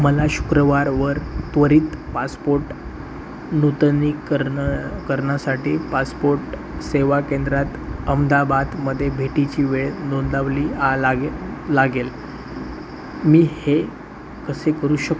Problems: constant background noise